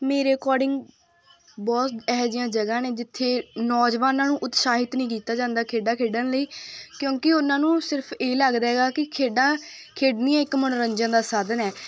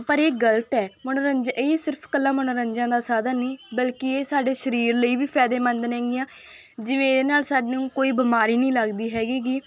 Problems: none marked